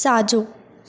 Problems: constant background noise, echo